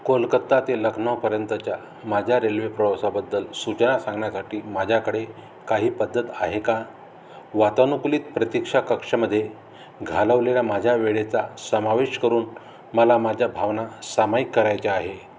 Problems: background sounds at intervals